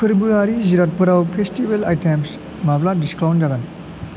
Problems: none marked